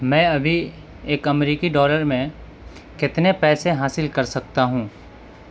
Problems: constant background noise